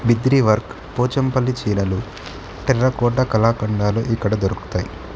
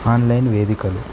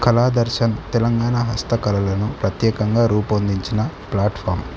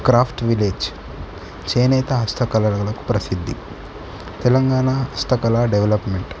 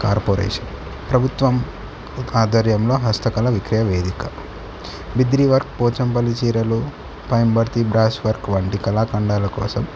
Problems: none marked